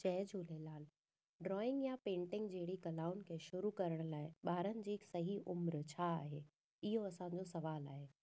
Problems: none marked